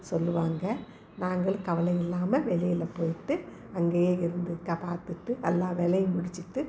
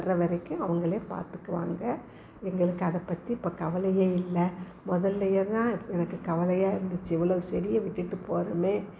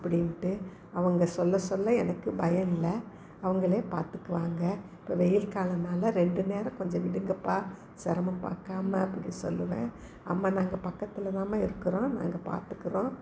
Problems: none marked